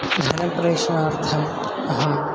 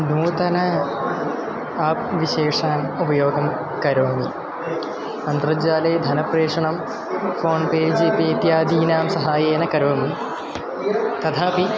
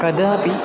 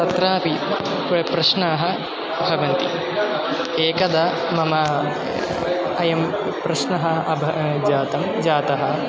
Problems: constant background noise